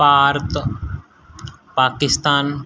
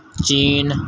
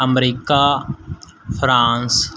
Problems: constant background noise